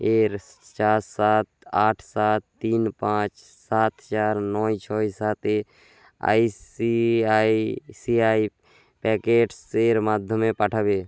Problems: constant background noise